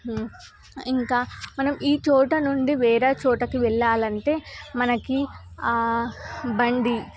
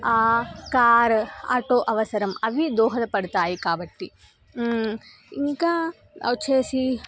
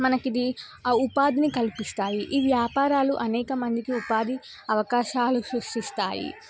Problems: background sounds at intervals